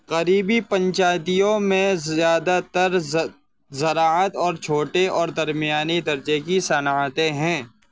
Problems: constant background noise